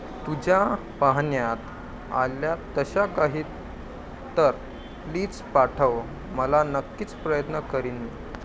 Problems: constant background noise